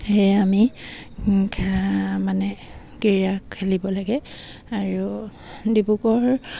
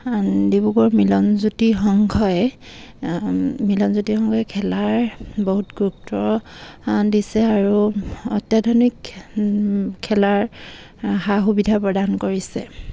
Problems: none marked